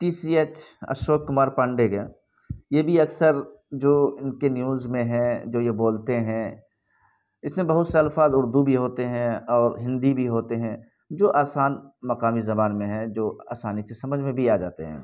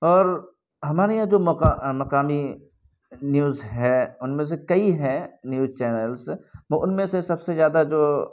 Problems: background sounds at intervals